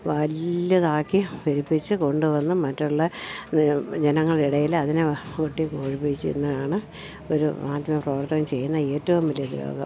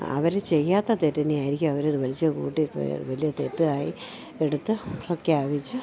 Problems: low volume